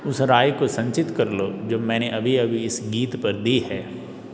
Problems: none marked